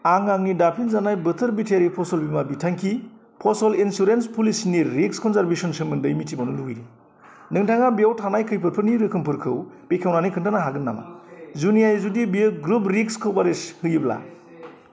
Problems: constant background noise